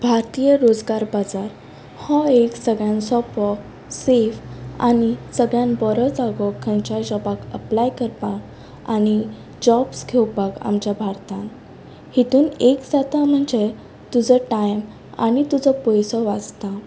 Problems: constant background noise